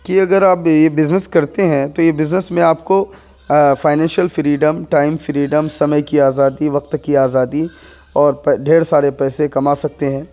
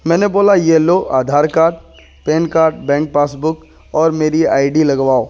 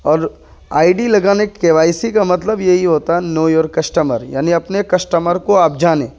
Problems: none marked